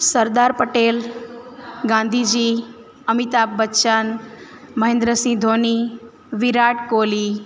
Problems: constant background noise